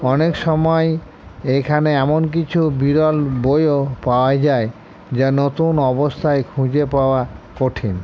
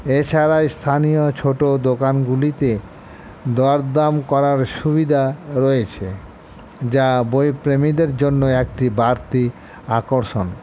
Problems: constant background noise